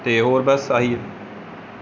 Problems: none marked